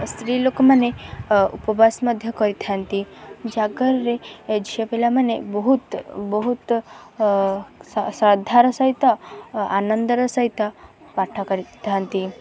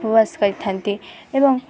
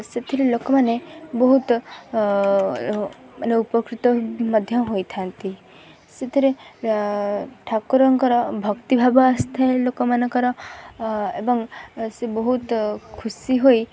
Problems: constant background noise, continuous background conversations